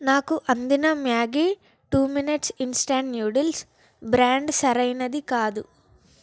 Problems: background sounds at intervals